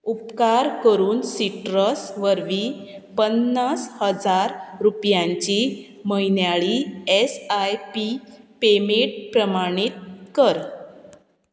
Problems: constant background noise